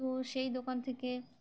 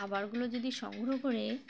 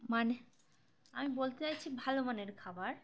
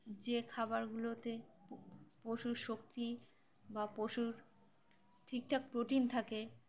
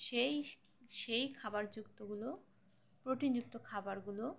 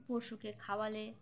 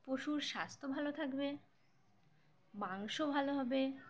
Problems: background sounds at intervals, background conversations at intervals